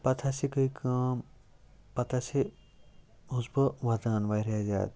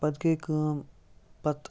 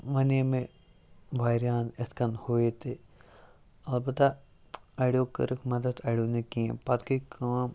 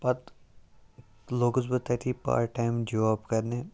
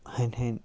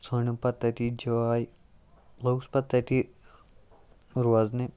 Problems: none marked